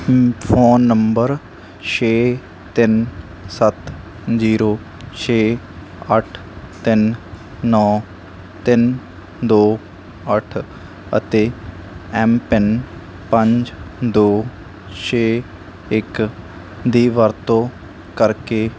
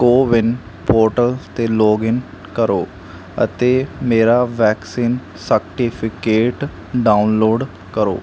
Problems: constant background noise